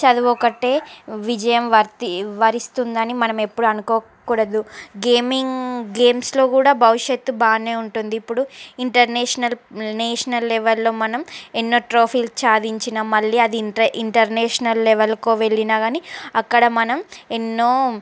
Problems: background sounds at intervals